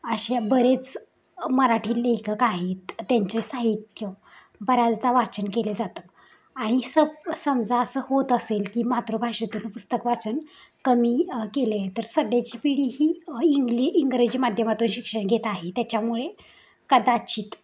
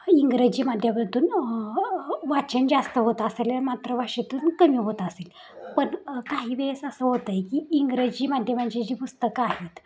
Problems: none marked